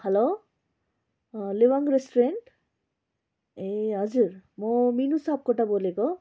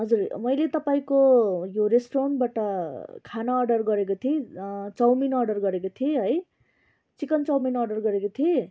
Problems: background conversations at intervals